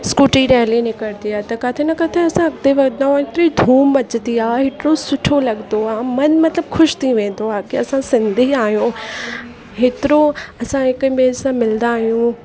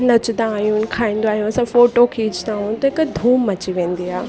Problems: constant background noise